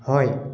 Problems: none marked